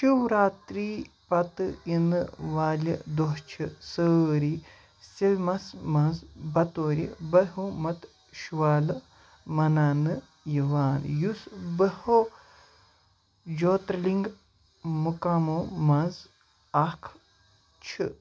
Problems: background sounds at intervals